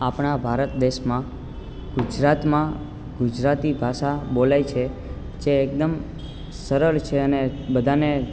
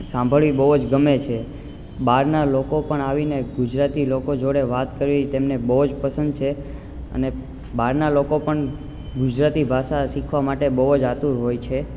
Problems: constant background noise